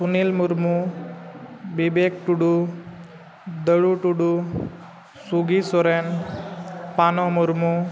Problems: none marked